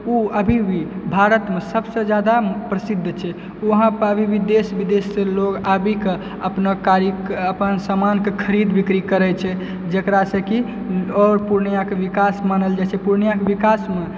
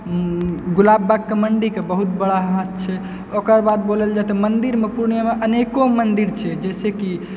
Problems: background sounds at intervals